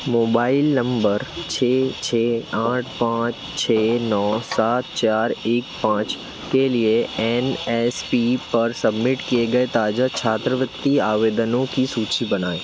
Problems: constant background noise